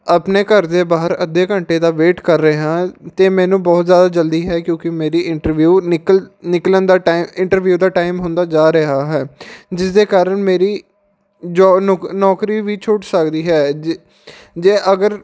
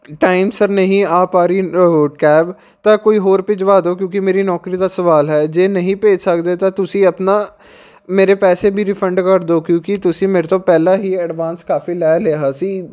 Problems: none marked